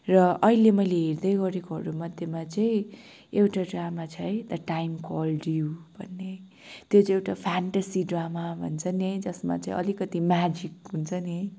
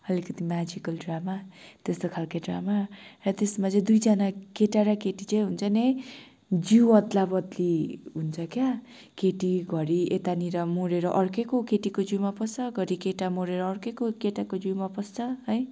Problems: background sounds at intervals, background conversations at intervals